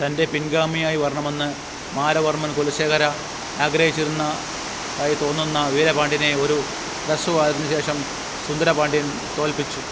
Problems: constant background noise